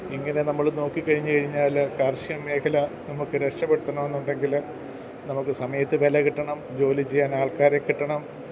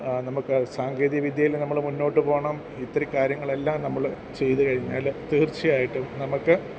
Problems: none marked